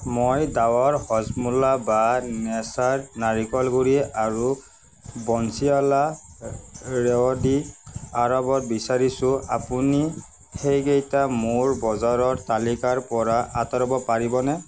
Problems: constant background noise